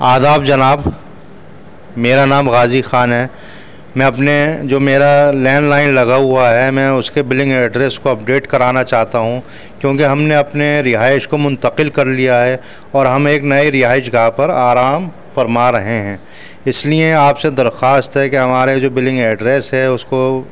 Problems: constant background noise, background conversations at intervals